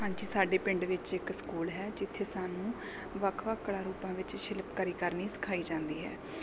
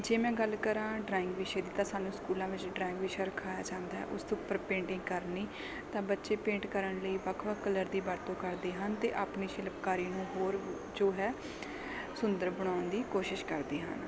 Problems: background sounds at intervals, background conversations at intervals